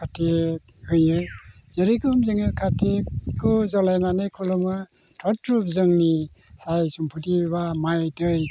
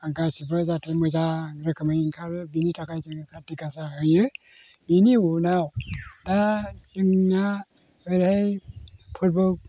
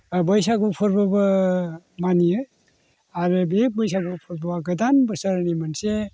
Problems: none marked